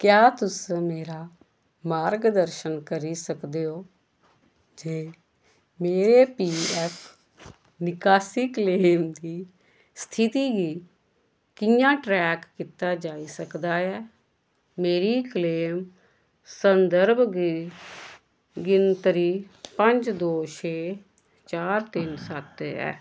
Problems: none marked